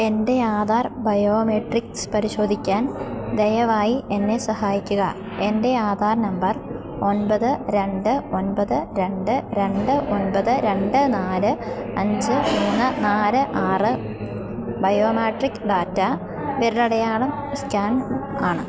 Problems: background sounds at intervals